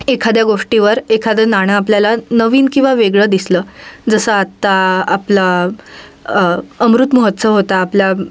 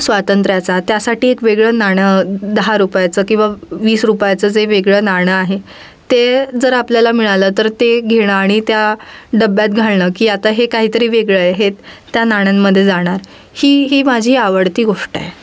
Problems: none marked